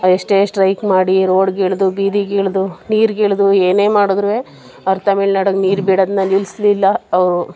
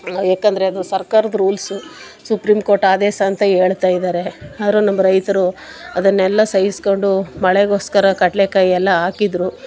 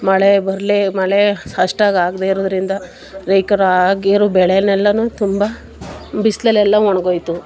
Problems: background sounds at intervals